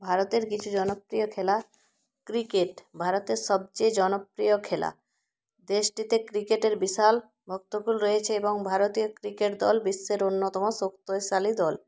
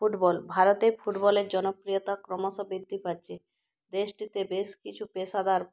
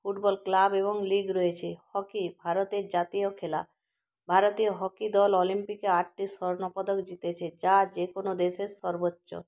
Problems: constant background noise